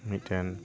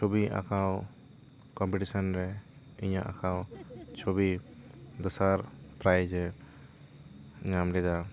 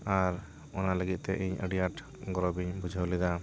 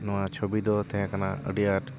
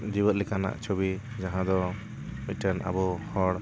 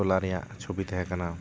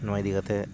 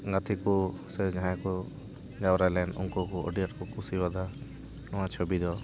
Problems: constant background noise, continuous background conversations